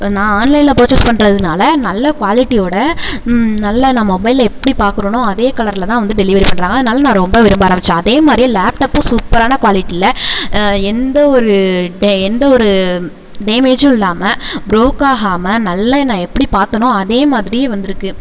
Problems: none marked